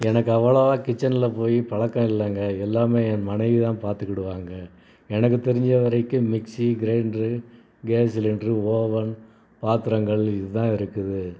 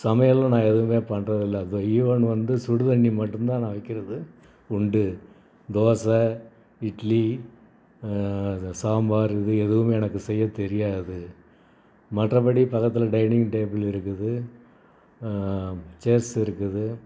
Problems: background sounds at intervals